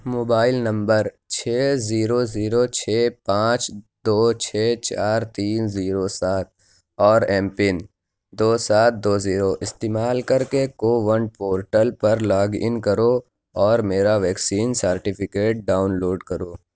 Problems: none marked